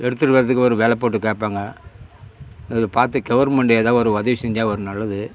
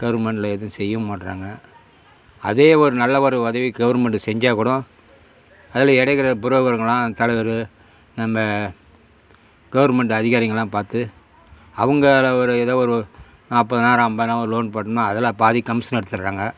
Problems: constant background noise